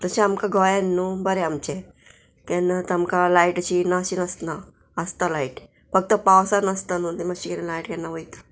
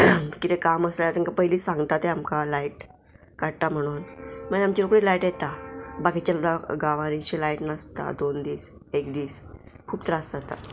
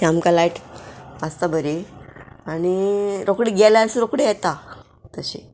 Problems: none marked